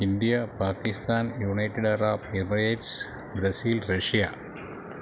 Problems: background sounds at intervals